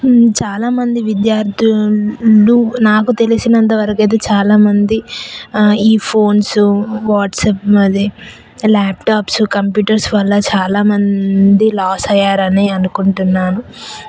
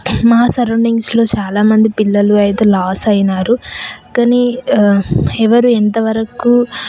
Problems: constant background noise, background conversations at intervals